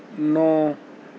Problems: constant background noise, low volume